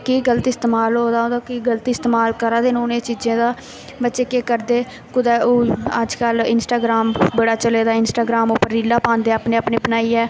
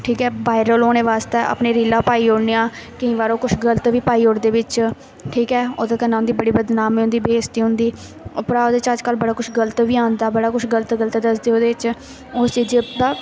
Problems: none marked